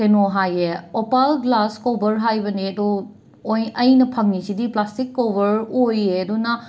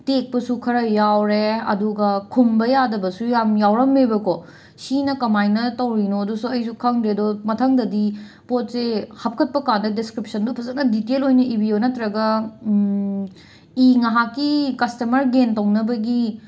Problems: none marked